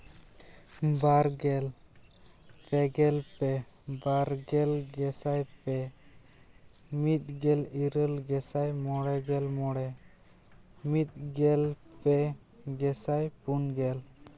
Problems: constant background noise, background conversations at intervals